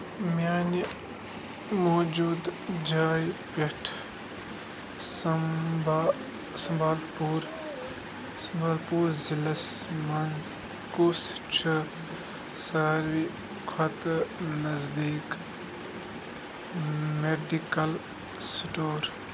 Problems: constant background noise